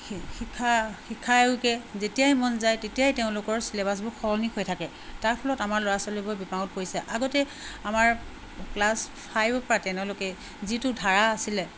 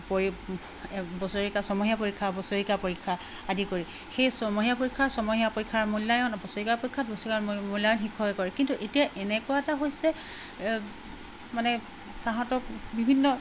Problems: constant background noise